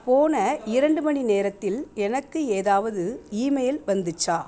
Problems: background conversations at intervals